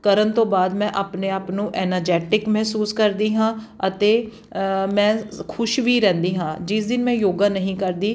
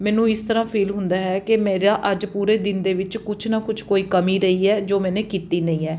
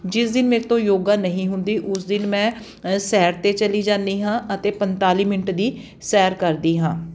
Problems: none marked